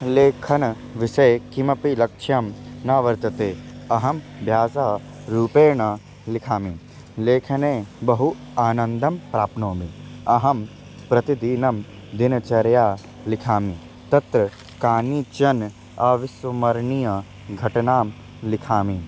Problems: constant background noise